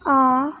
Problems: none marked